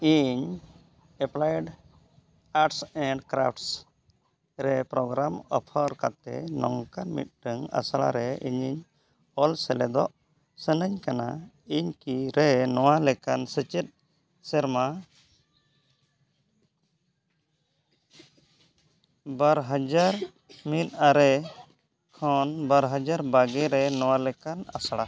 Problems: none marked